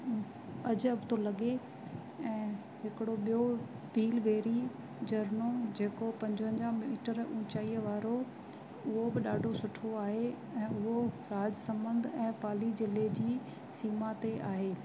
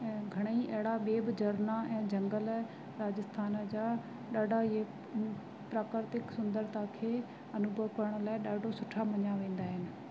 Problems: constant background noise